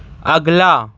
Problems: none marked